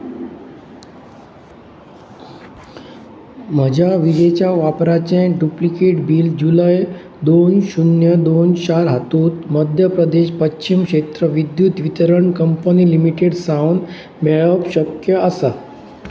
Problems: constant background noise